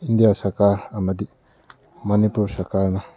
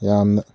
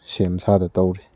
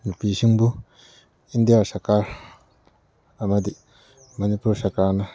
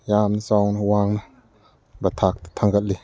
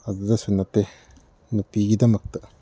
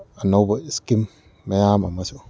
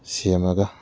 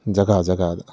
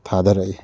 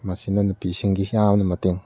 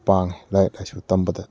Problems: none marked